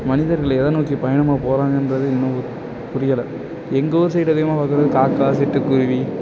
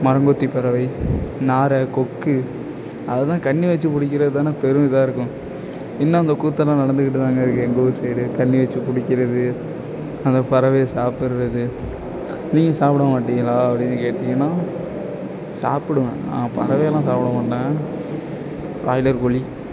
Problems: background sounds at intervals